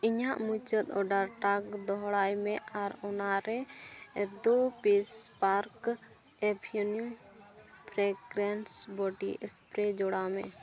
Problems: background sounds at intervals